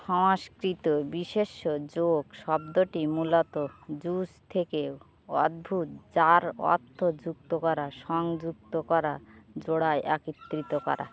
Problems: constant background noise, background conversations at intervals